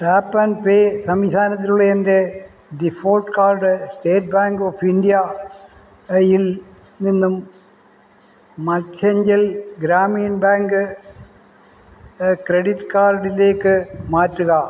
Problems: low volume